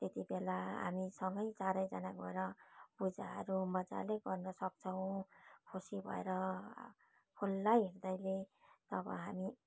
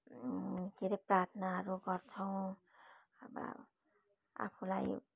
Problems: constant background noise